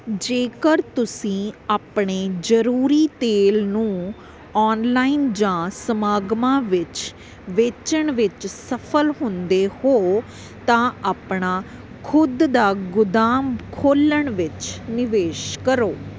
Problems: none marked